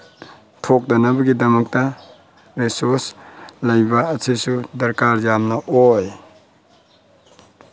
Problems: constant background noise